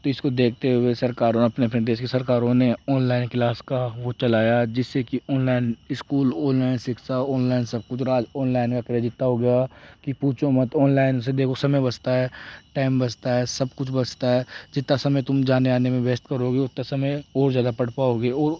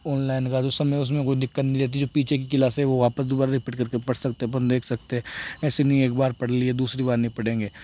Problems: background sounds at intervals